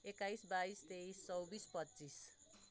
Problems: low volume